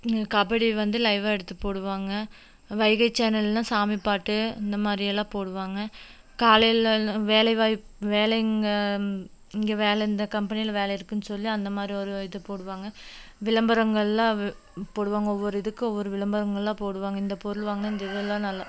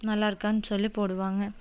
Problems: none marked